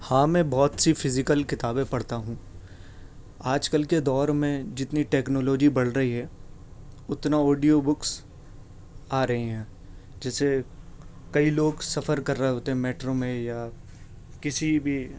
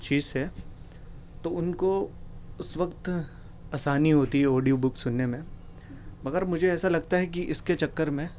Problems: none marked